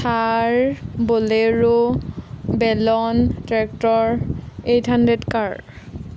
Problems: none marked